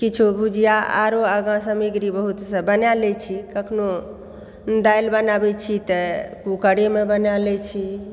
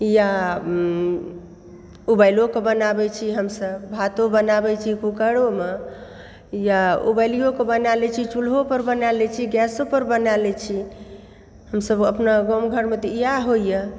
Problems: background sounds at intervals